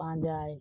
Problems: low volume